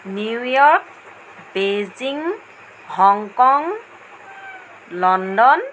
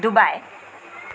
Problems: constant background noise